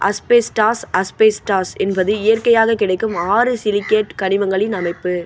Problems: constant background noise